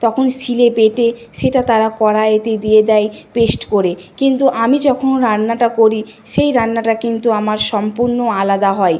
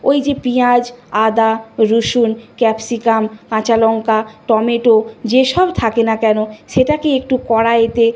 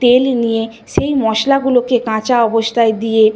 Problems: none marked